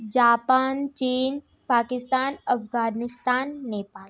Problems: background sounds at intervals